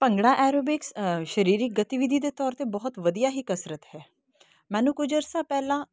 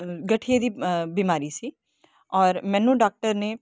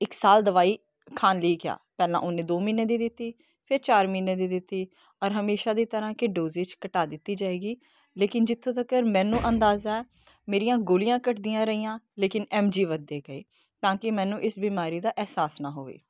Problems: none marked